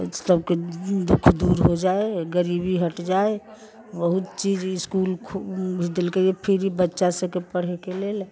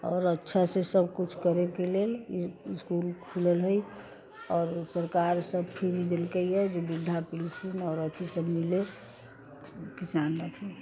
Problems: constant background noise